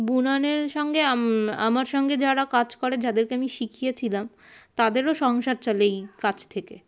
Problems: constant background noise, background conversations at intervals